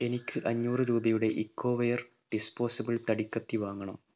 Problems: none marked